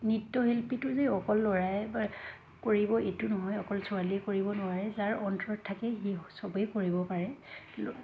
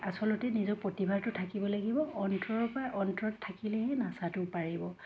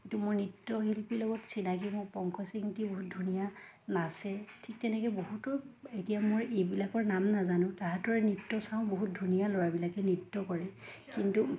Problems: constant background noise, background conversations at intervals